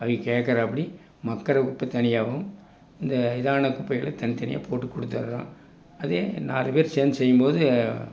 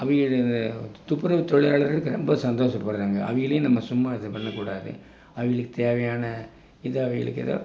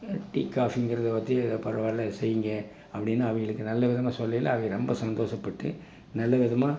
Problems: none marked